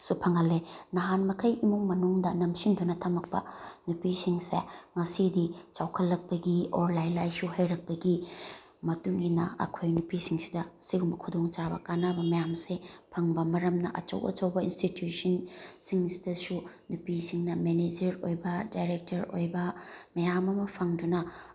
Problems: background sounds at intervals